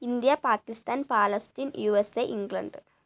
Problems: low volume